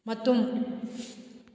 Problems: none marked